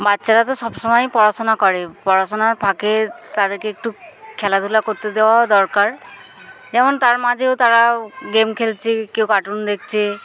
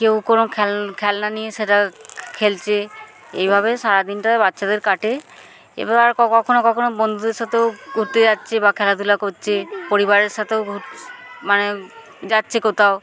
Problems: none marked